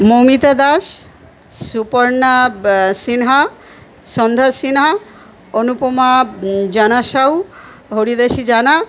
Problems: constant background noise